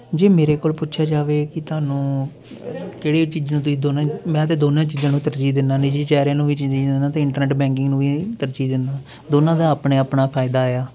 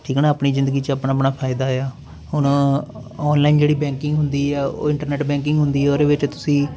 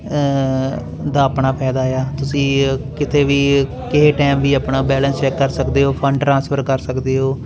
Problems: none marked